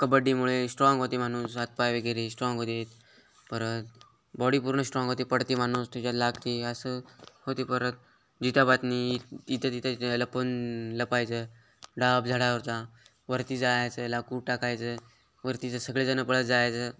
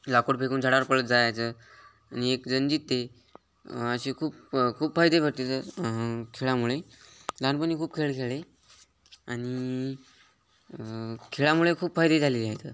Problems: constant background noise